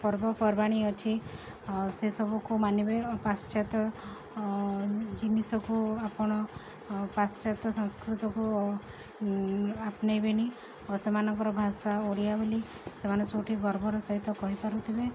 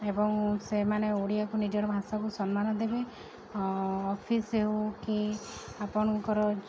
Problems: none marked